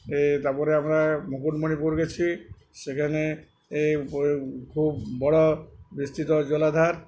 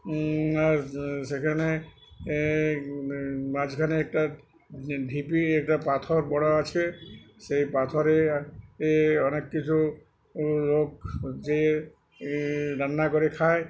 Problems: background conversations at intervals